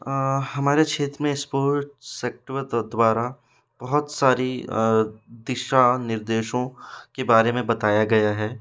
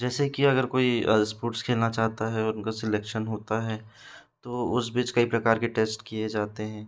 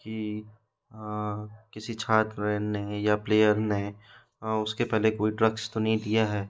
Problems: constant background noise